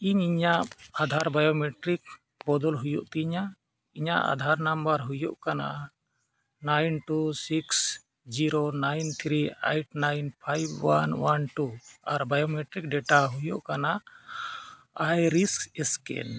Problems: background sounds at intervals